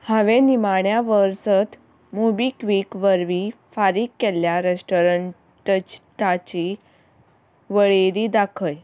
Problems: background sounds at intervals